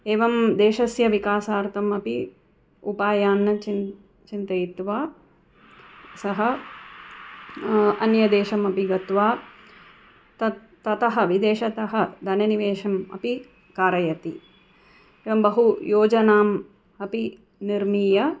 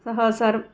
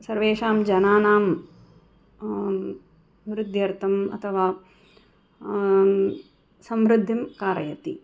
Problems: background sounds at intervals